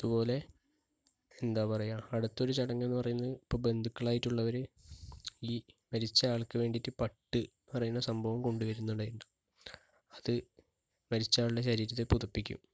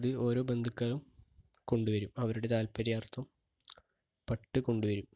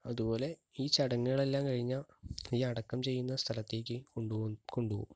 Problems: low volume